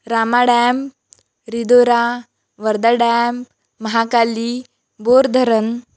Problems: none marked